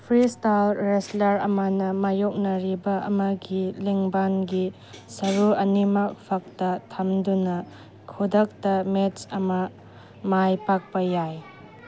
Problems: background sounds at intervals